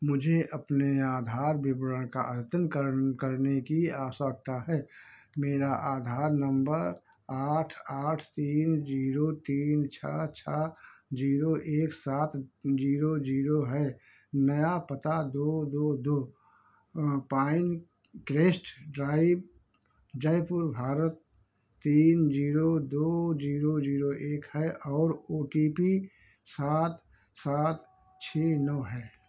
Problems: background sounds at intervals, low volume